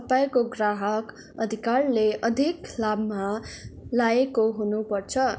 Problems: none marked